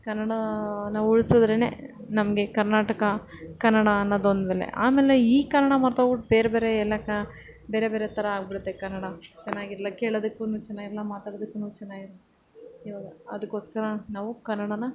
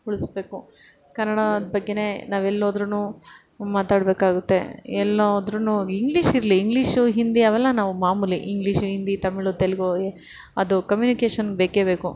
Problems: none marked